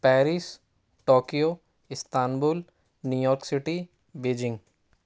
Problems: none marked